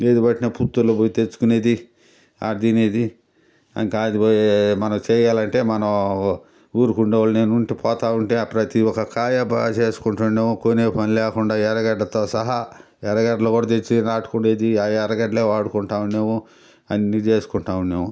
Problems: constant background noise